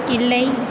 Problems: constant background noise